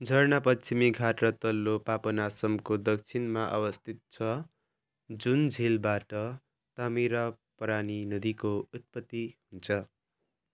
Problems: none marked